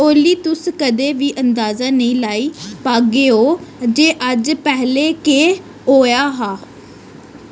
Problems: none marked